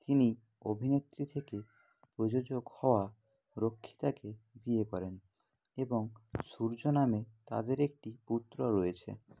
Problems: low volume